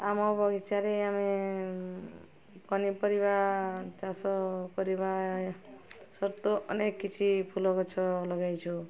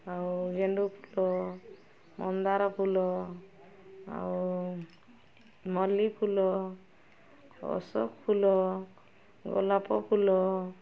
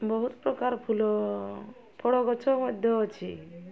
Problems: constant background noise